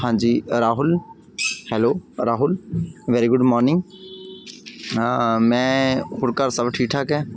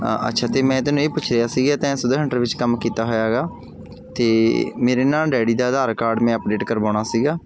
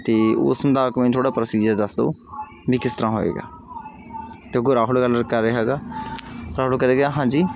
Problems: background sounds at intervals